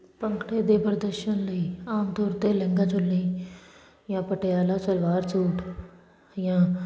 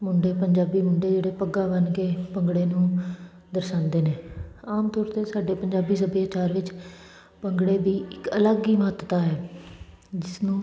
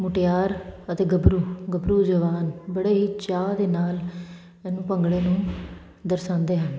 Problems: constant background noise